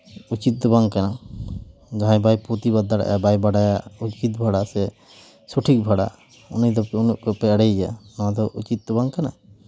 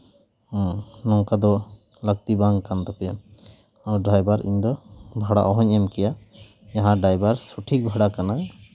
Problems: background sounds at intervals